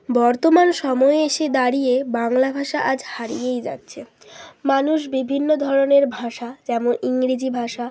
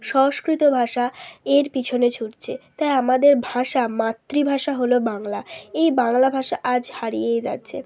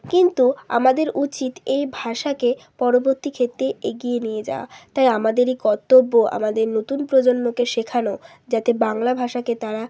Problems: none marked